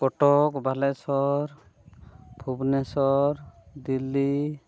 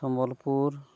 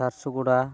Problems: background sounds at intervals